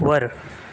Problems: constant background noise